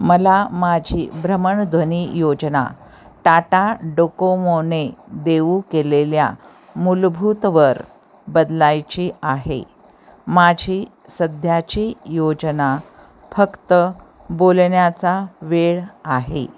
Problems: constant background noise